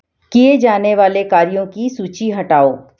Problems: background sounds at intervals